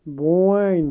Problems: constant background noise